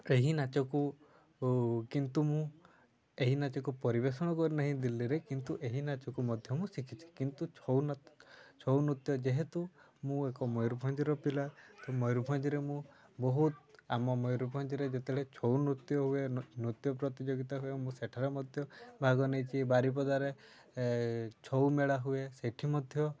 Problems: none marked